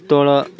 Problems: background sounds at intervals